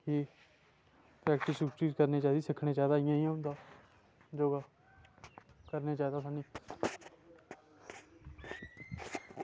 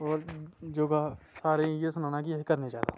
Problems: constant background noise